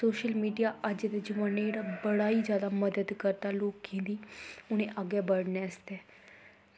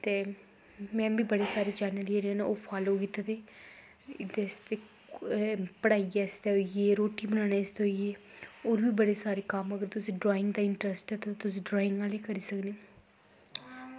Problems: constant background noise